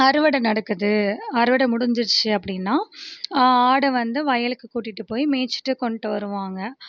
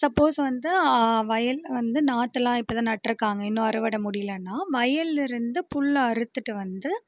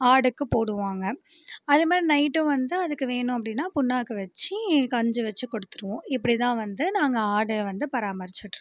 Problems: none marked